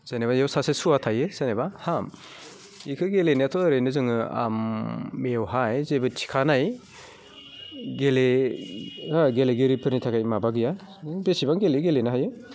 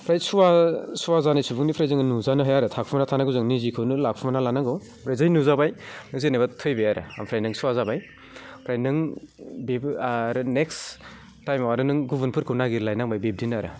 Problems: none marked